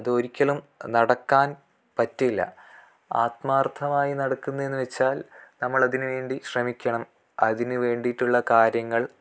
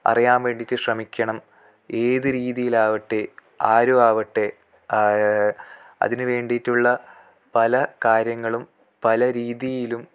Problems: none marked